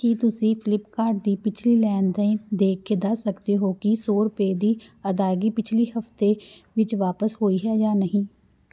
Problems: background sounds at intervals